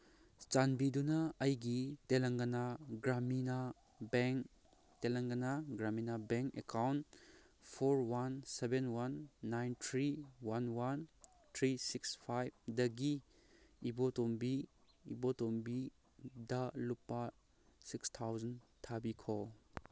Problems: none marked